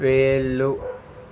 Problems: none marked